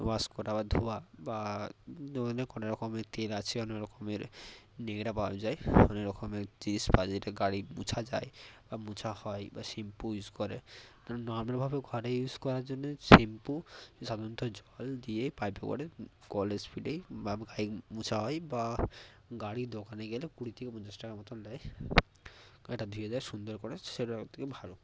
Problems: constant background noise, low volume